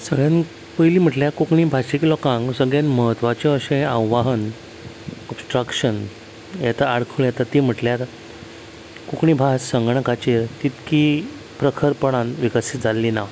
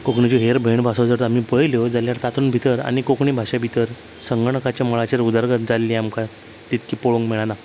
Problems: constant background noise